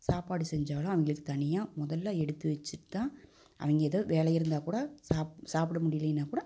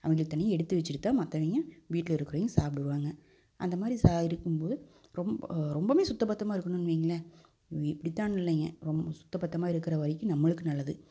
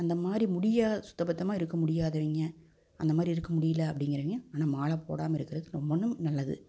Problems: none marked